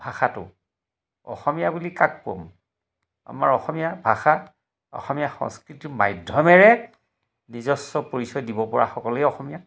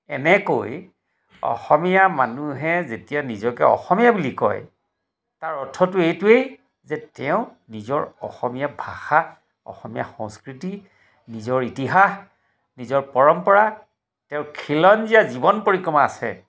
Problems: background sounds at intervals